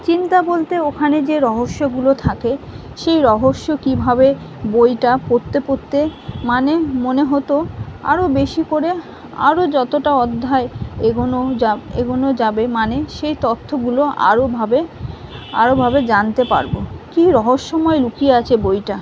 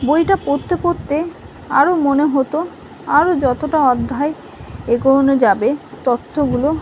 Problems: constant background noise